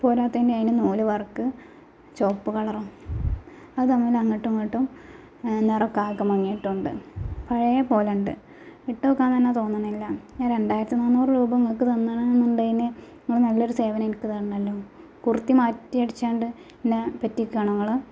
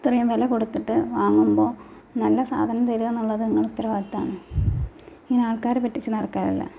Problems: background sounds at intervals